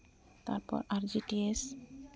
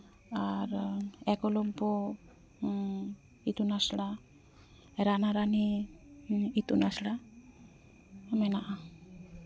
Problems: constant background noise